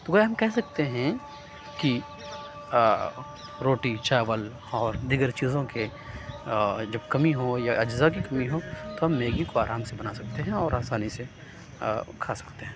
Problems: none marked